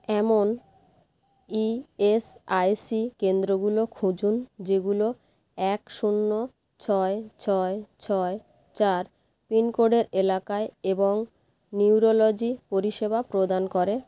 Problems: none marked